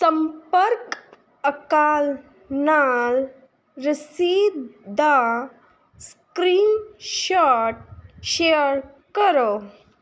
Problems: none marked